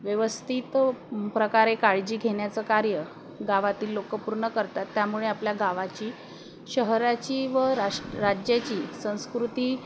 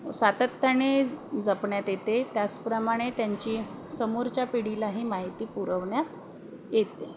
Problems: constant background noise